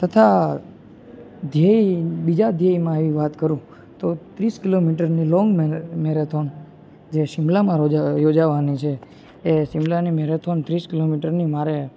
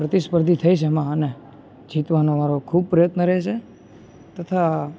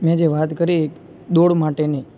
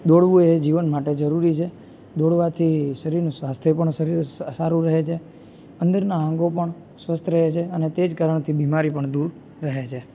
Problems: constant background noise